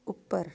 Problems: background conversations at intervals